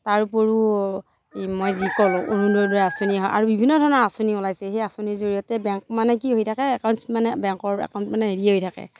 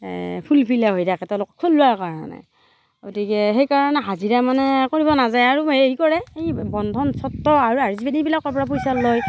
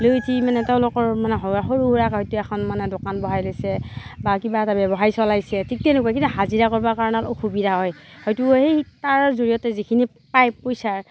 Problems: none marked